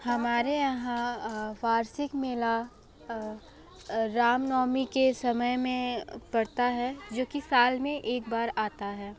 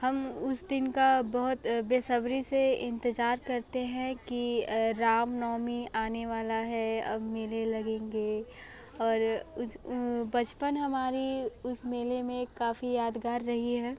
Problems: background sounds at intervals